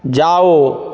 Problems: none marked